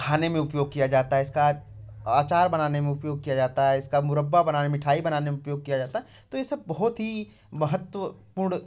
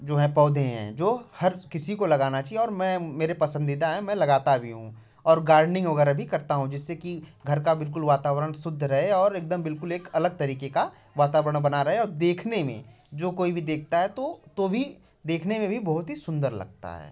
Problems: none marked